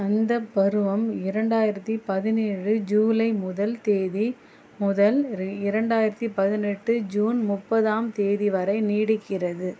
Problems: constant background noise